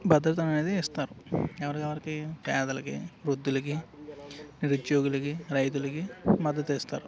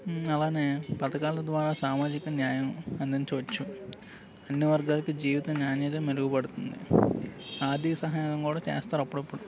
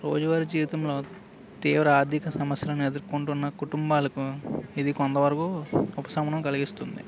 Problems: constant background noise